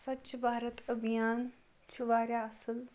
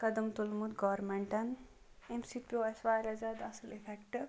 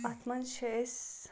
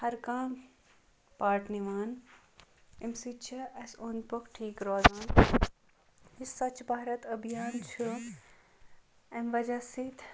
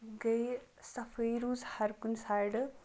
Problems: background sounds at intervals